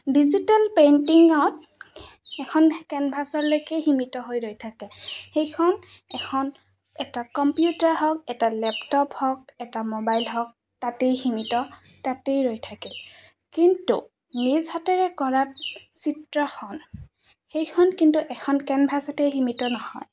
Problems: constant background noise